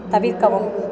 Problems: continuous background conversations